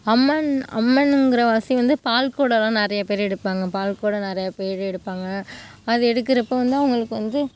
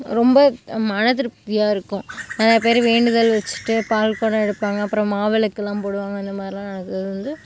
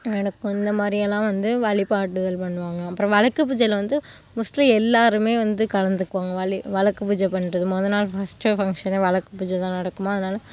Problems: background sounds at intervals